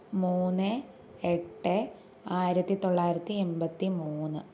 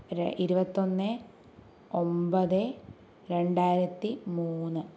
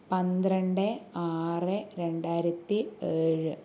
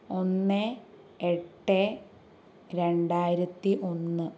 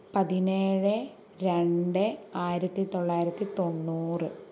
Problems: none marked